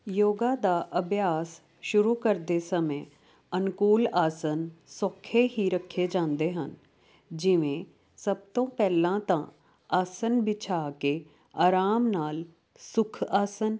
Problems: constant background noise